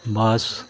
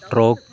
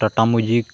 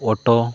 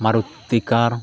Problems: constant background noise